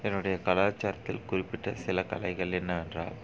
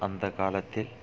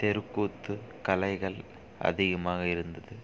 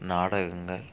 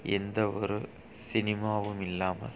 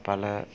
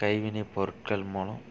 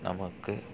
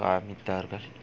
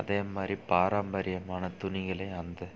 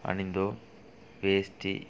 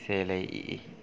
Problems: none marked